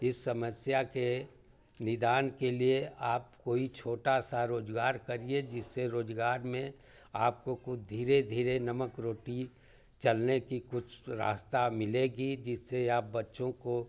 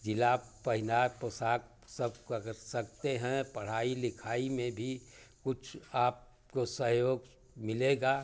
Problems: none marked